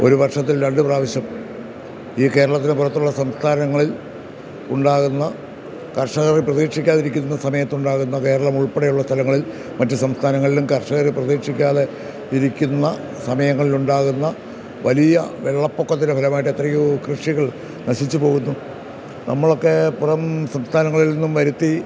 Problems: none marked